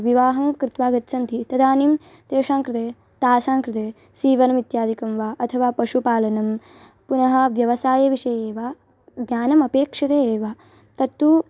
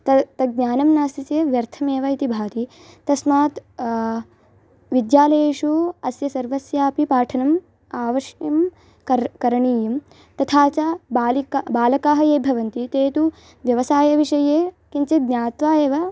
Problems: background sounds at intervals